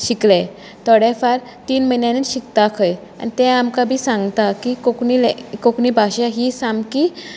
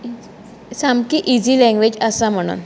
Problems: constant background noise, continuous background conversations